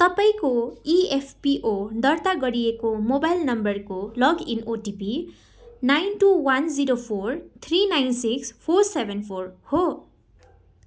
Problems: background sounds at intervals